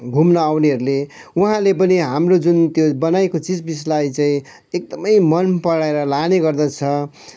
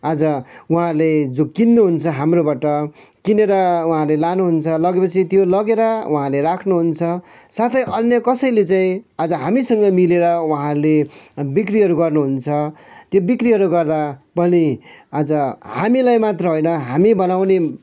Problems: background sounds at intervals